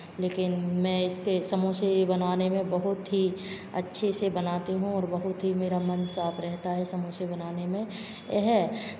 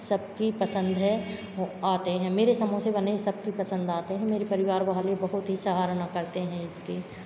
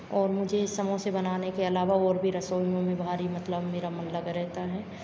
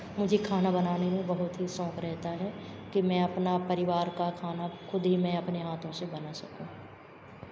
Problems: constant background noise, background conversations at intervals